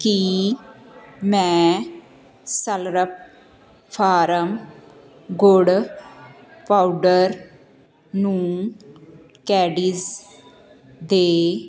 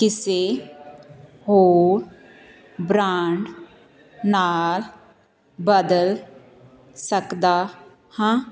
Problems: continuous background conversations